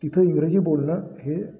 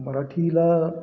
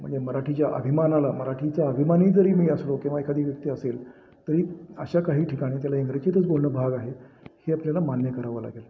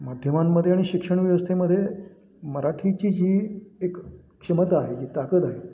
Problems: constant background noise, background conversations at intervals